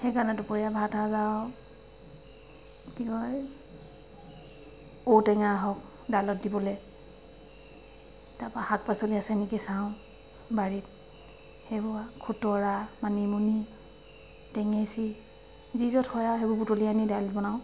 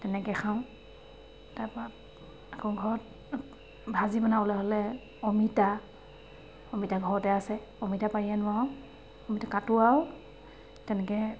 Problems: constant background noise, background conversations at intervals